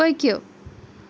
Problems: background sounds at intervals